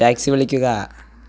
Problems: background sounds at intervals